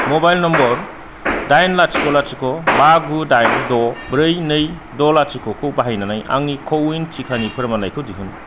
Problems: constant background noise, low volume